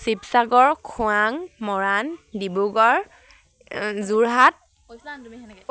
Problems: none marked